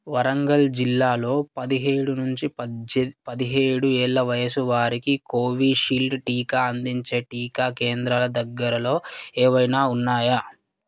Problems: none marked